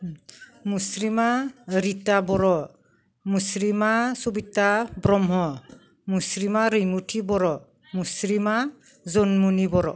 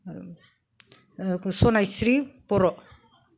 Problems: none marked